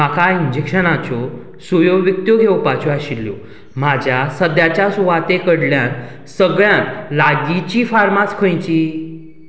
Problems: none marked